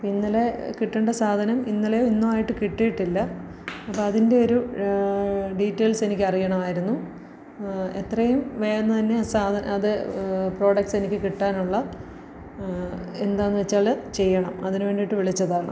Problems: low volume